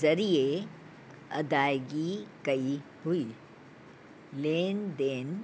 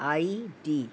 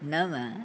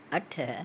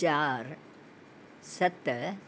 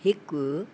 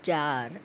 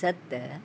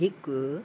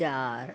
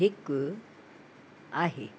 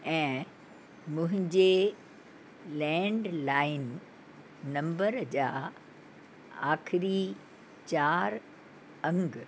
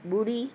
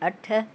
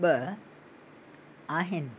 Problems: constant background noise